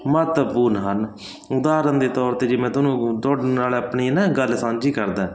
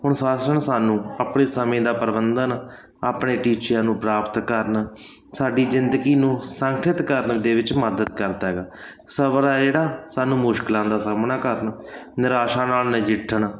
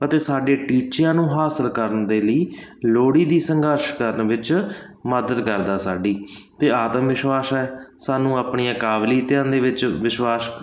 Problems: background sounds at intervals